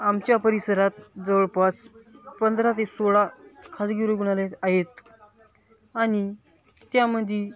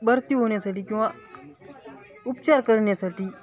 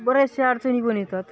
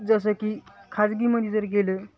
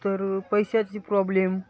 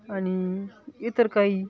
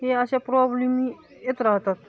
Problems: none marked